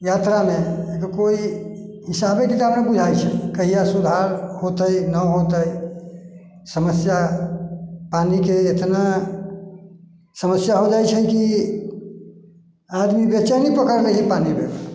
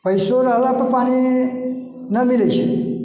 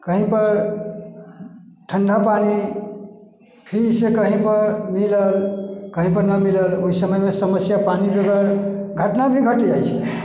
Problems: echo